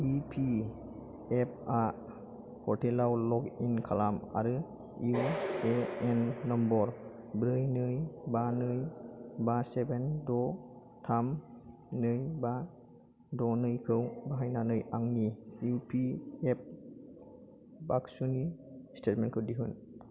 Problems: none marked